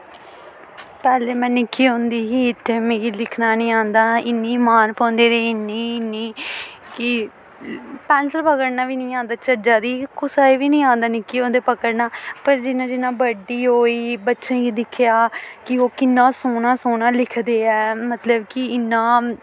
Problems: constant background noise